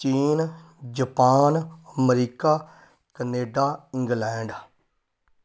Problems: none marked